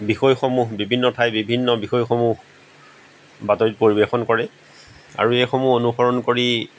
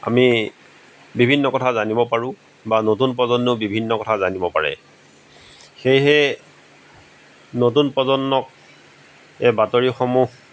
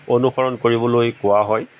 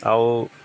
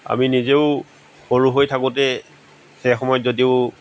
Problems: background sounds at intervals